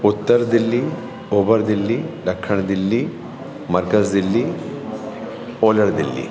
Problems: constant background noise, echo